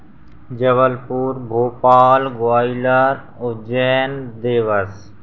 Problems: none marked